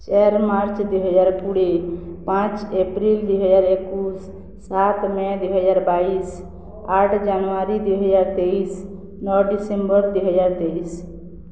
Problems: constant background noise